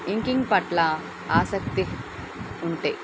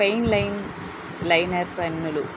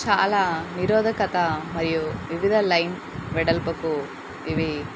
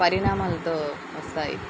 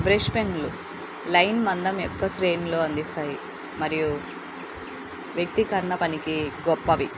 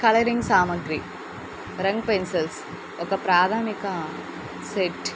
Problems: constant background noise